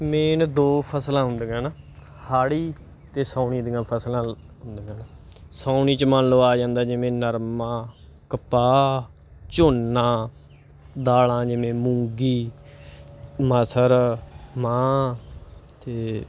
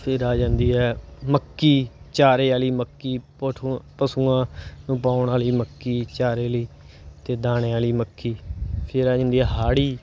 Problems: background sounds at intervals